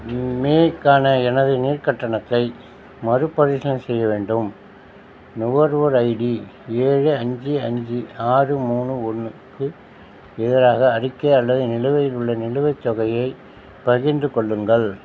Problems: none marked